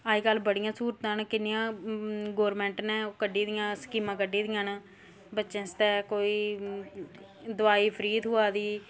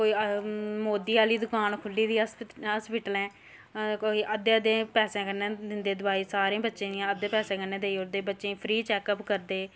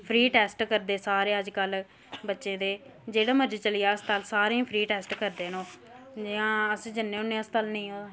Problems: none marked